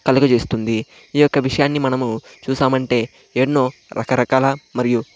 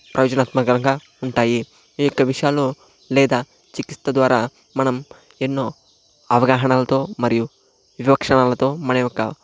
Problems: constant background noise